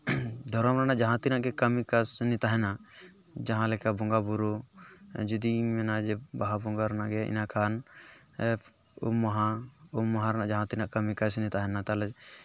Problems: background sounds at intervals, background conversations at intervals